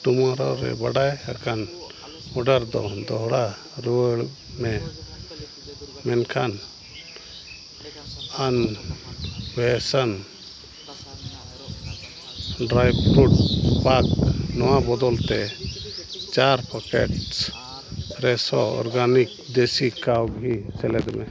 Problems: constant background noise, continuous background conversations